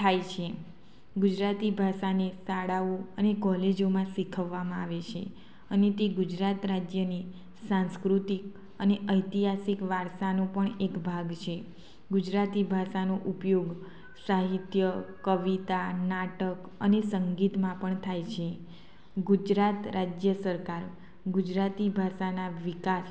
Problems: constant background noise